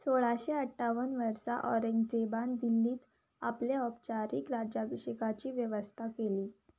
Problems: background sounds at intervals